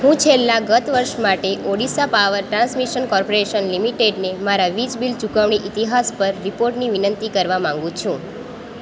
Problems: constant background noise